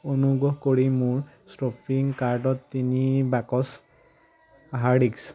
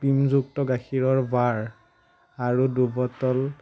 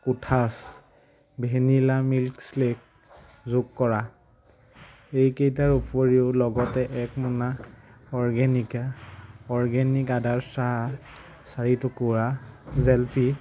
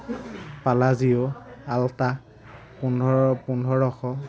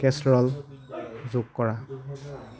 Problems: low volume